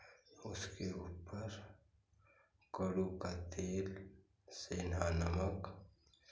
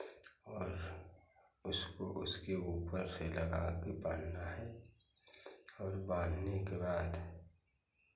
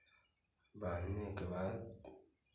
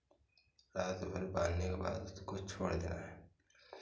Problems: none marked